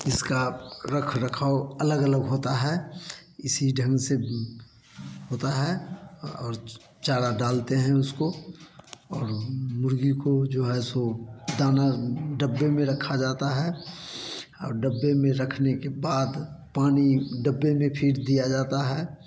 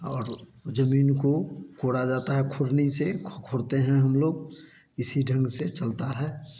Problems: none marked